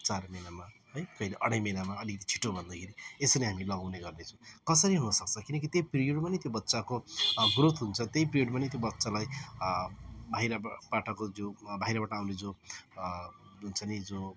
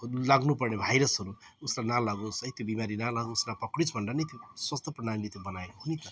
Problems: background sounds at intervals, background conversations at intervals